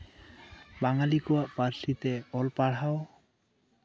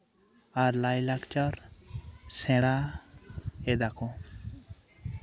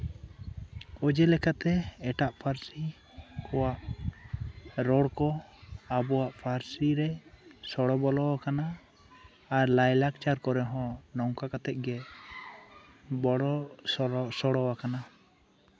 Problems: background conversations at intervals, low volume